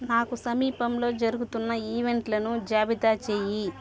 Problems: none marked